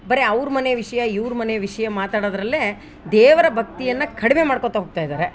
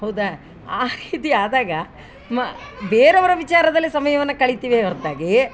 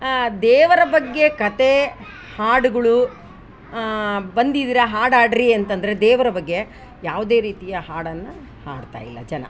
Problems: background sounds at intervals